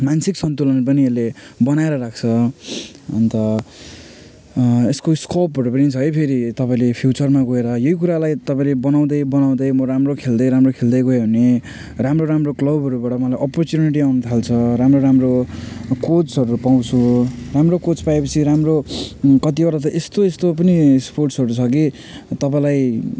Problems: none marked